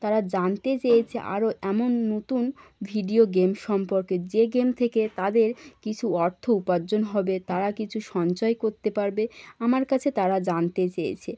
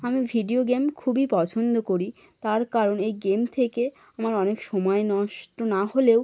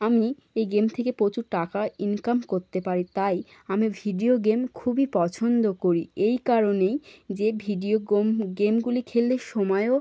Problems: none marked